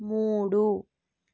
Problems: low volume